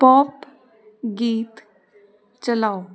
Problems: constant background noise